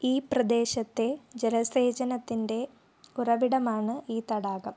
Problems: low volume